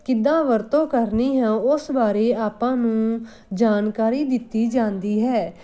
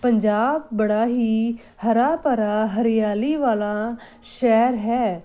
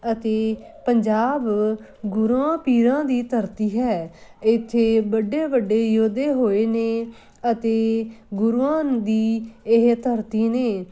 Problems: constant background noise